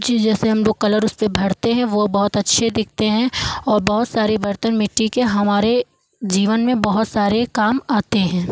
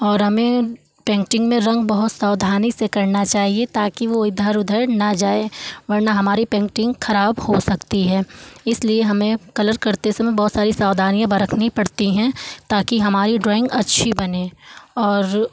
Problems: background sounds at intervals